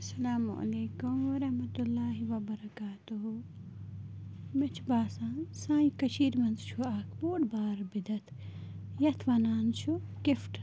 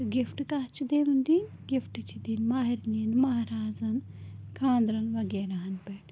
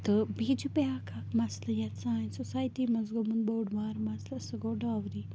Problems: constant background noise, low volume